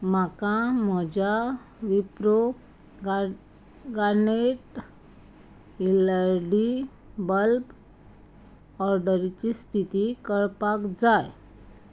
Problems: background sounds at intervals